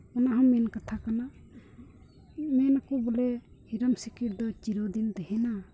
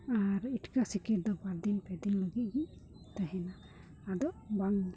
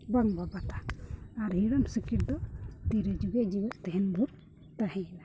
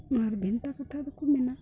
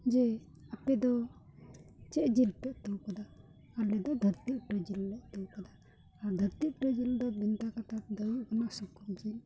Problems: background sounds at intervals, low volume